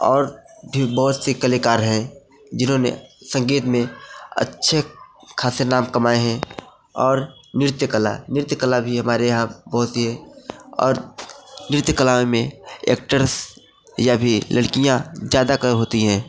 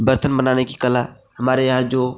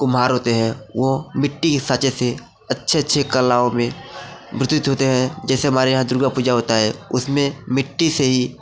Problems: background sounds at intervals